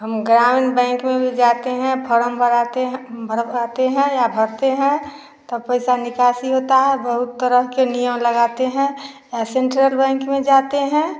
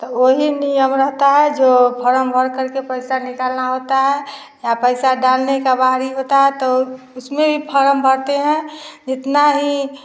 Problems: none marked